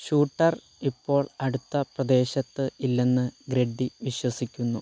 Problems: constant background noise